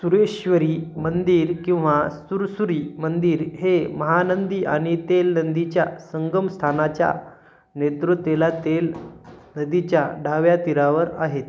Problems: constant background noise